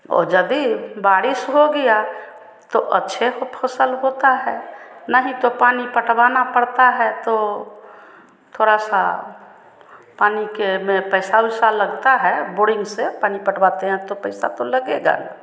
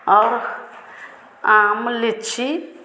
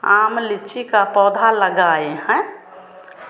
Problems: none marked